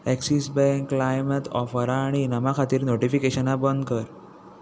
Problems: constant background noise